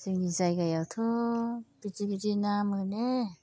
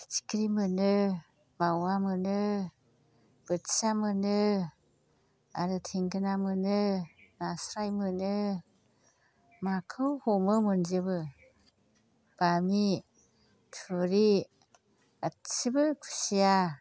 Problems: constant background noise